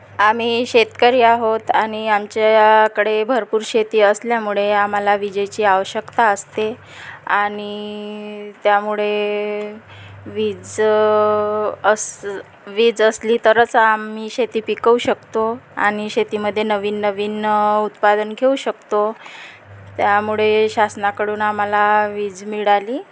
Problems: constant background noise, background conversations at intervals